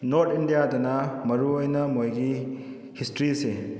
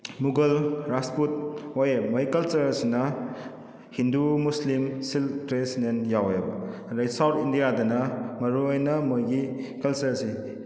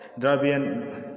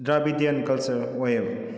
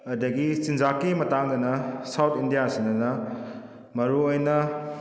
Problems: background sounds at intervals